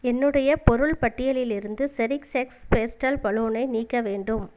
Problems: none marked